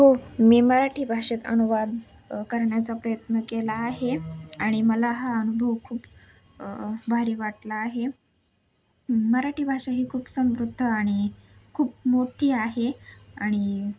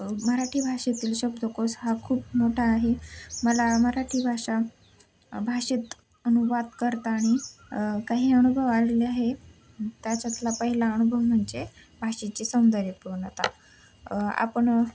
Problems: none marked